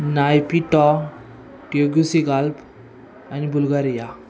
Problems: constant background noise, continuous background conversations